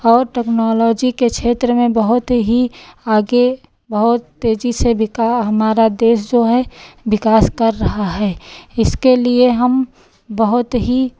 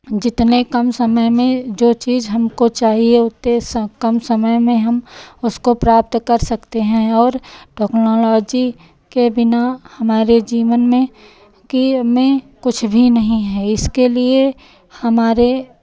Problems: none marked